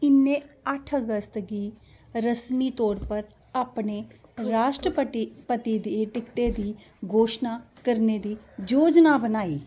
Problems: constant background noise